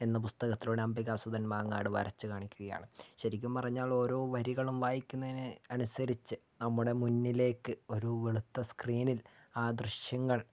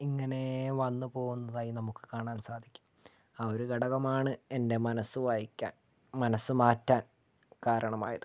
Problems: low volume